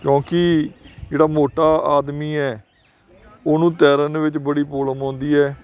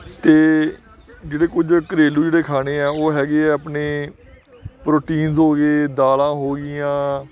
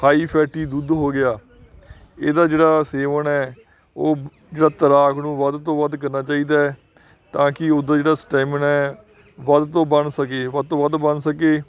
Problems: none marked